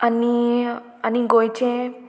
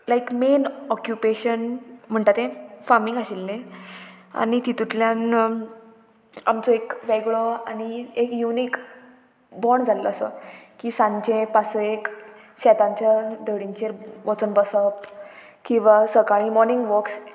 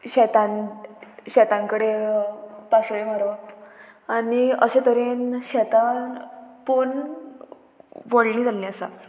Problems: constant background noise